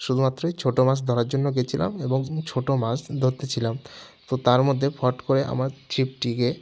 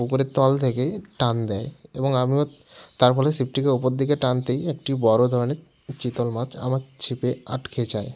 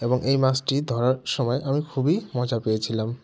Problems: constant background noise